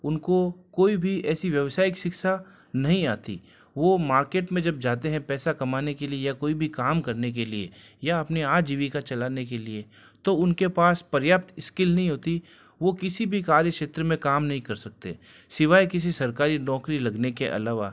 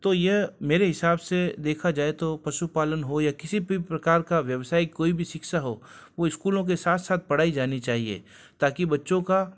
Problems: none marked